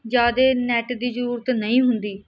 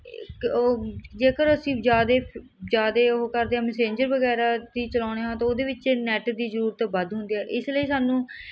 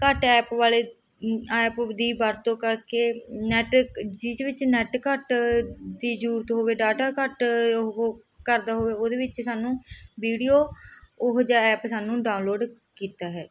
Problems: none marked